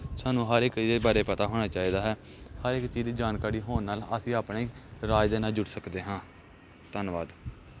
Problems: background sounds at intervals